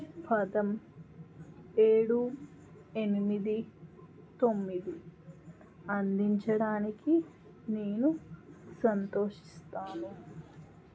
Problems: background sounds at intervals